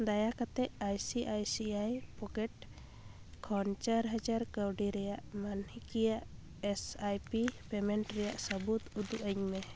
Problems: background sounds at intervals